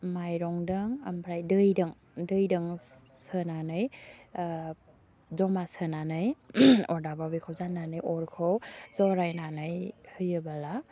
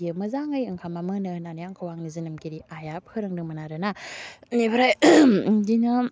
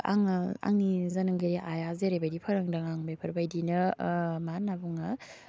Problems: low volume